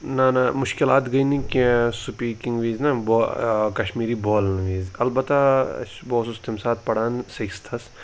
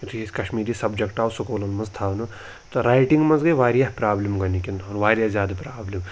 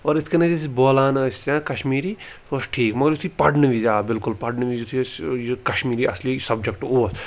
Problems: background sounds at intervals